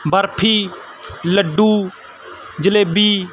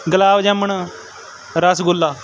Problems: background conversations at intervals